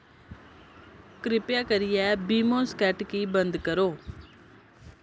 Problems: constant background noise